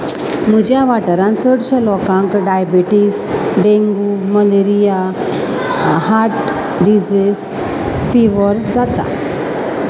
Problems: constant background noise